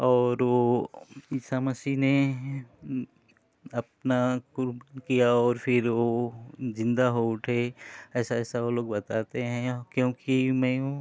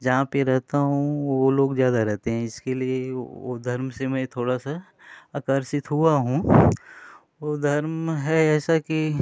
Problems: background sounds at intervals